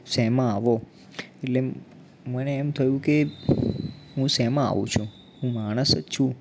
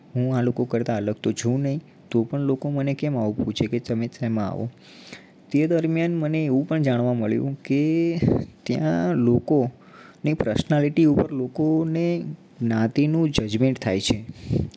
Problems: background sounds at intervals